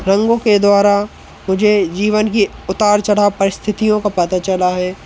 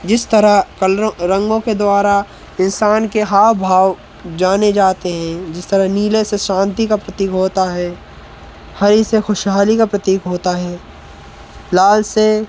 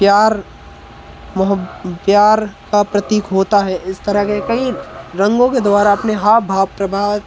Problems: none marked